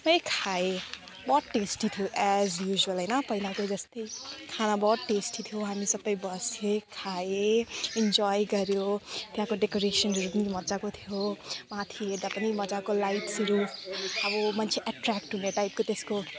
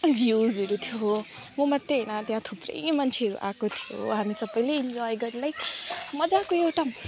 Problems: background conversations at intervals